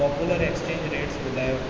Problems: constant background noise, echo, low volume